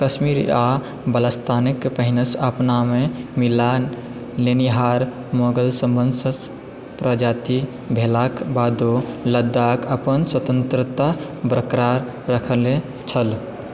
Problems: background sounds at intervals